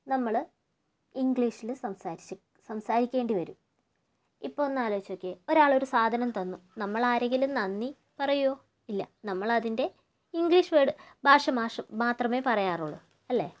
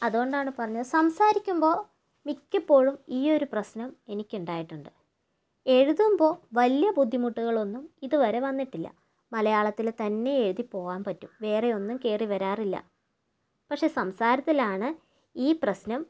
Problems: low volume